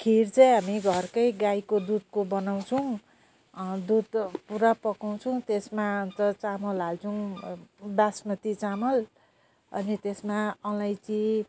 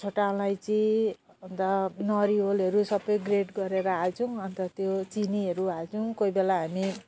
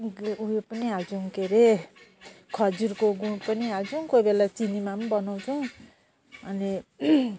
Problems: none marked